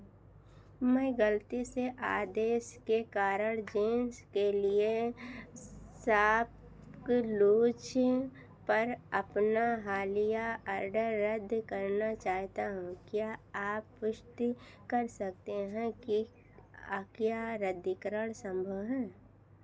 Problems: none marked